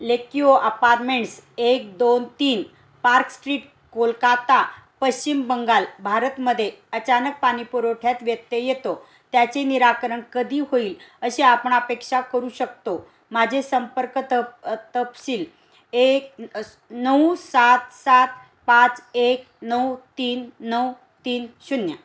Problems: background sounds at intervals